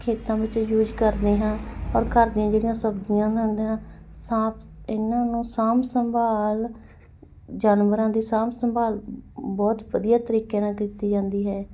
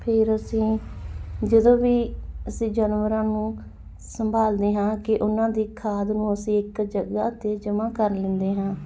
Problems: none marked